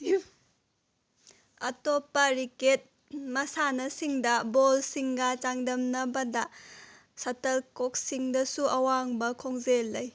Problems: none marked